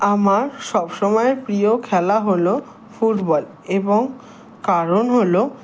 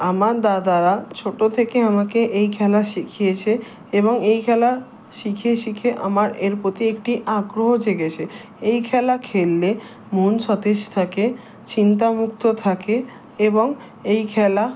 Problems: constant background noise